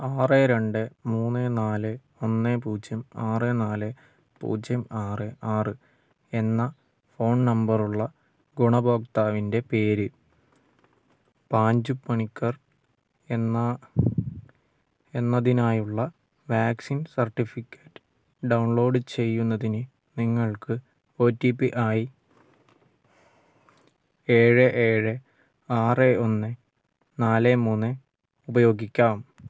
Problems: low volume